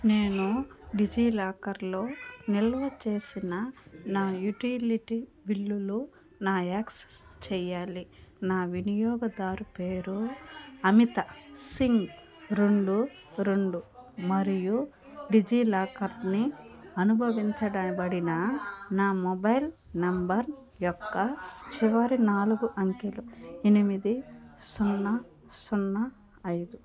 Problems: continuous background conversations